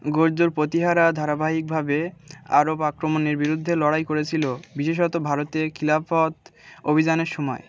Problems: constant background noise, continuous background conversations